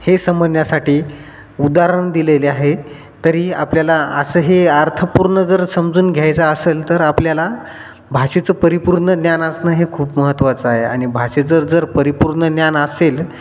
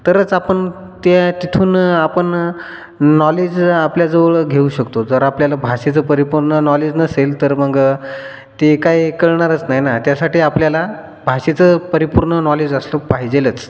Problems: constant background noise, background conversations at intervals, echo